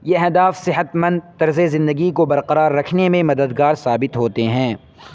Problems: constant background noise